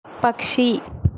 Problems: constant background noise